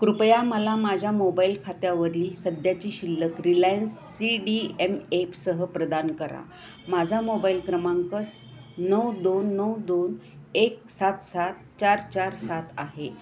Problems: constant background noise, background conversations at intervals